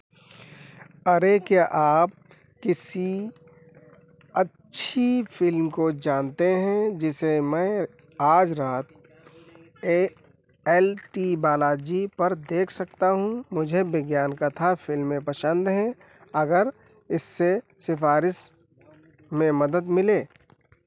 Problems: constant background noise